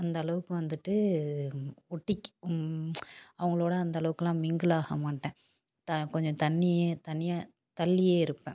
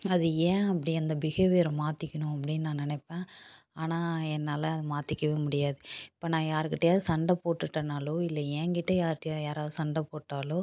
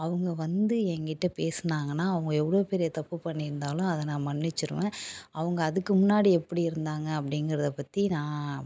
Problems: background sounds at intervals